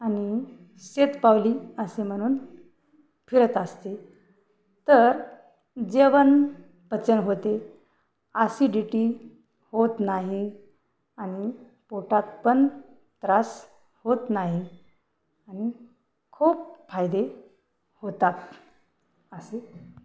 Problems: background sounds at intervals